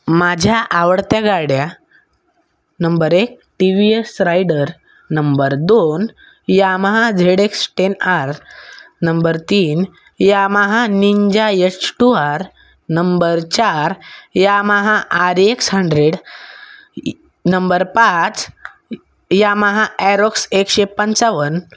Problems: none marked